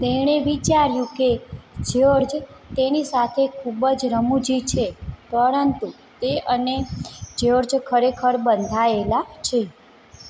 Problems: background sounds at intervals